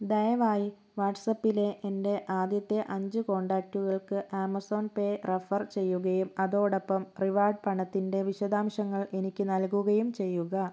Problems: low volume